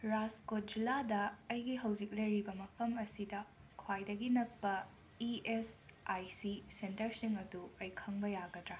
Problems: constant background noise